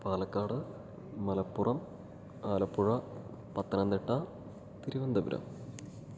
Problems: low volume